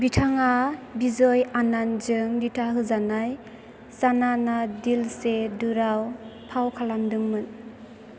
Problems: constant background noise